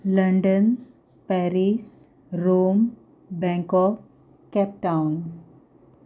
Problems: background sounds at intervals